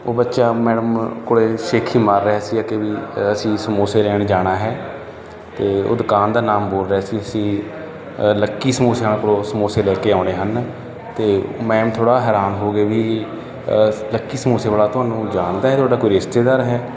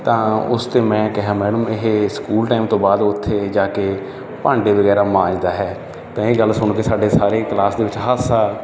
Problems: none marked